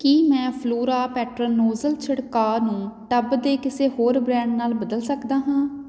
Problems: none marked